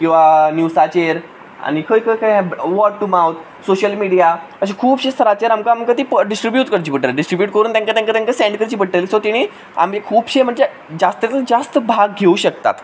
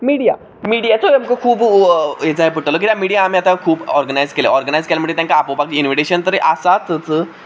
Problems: background sounds at intervals